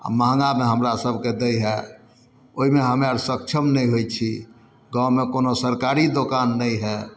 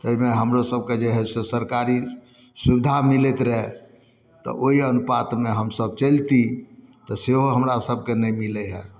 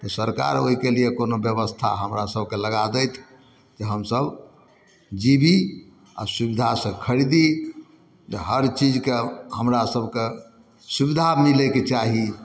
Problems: none marked